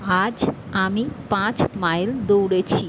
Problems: constant background noise